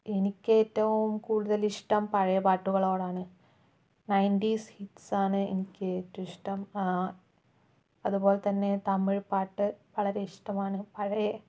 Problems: low volume